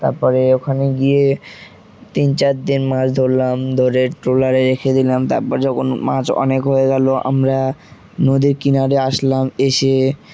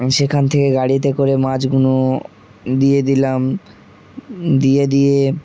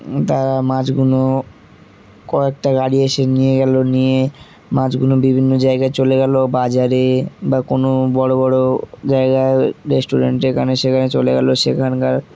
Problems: constant background noise, background conversations at intervals